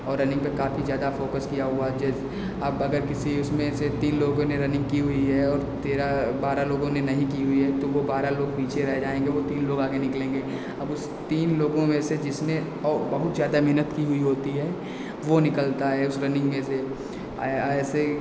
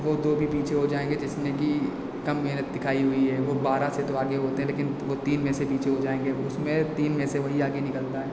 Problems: constant background noise, echo